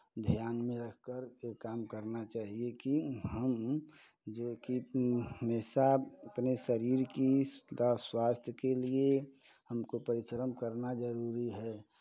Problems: constant background noise